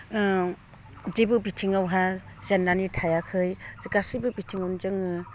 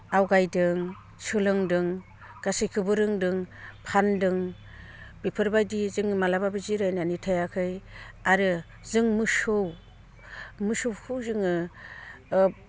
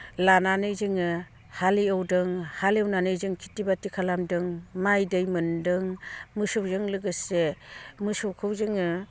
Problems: low volume